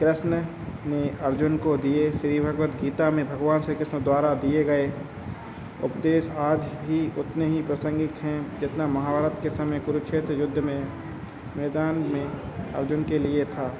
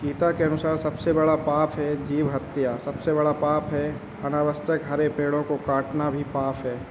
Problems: none marked